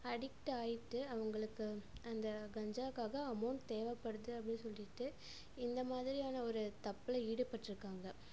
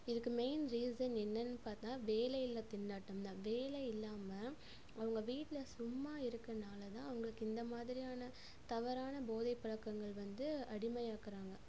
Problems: constant background noise, low volume